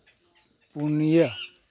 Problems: background sounds at intervals